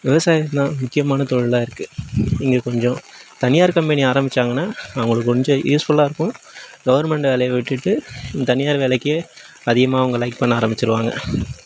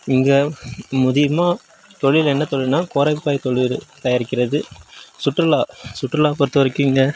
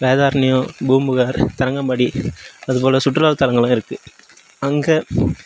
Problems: background sounds at intervals